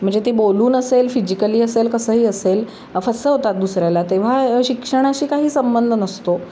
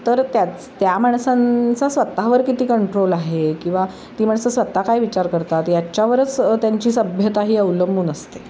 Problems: constant background noise